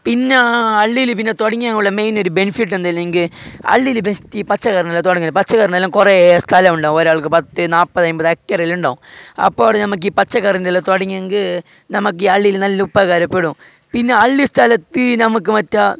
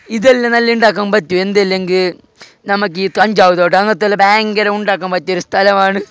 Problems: background sounds at intervals